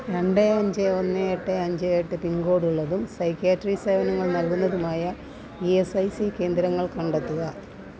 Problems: continuous background conversations, low volume